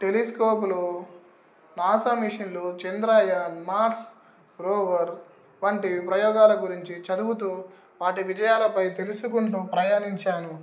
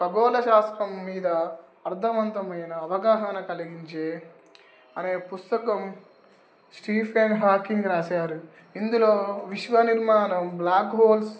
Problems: background sounds at intervals